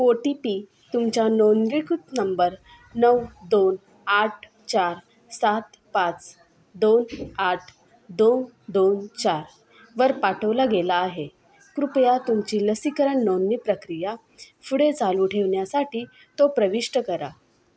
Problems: constant background noise, background conversations at intervals